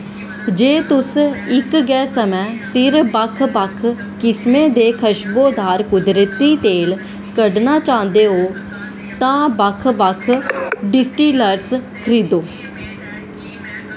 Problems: constant background noise